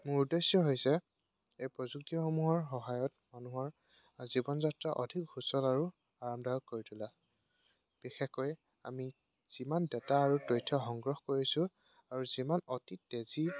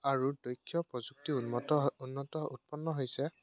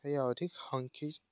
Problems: none marked